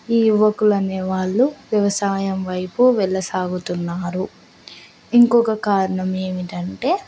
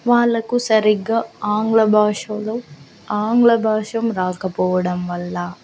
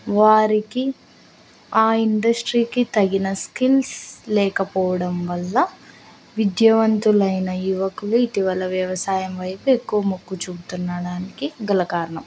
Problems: constant background noise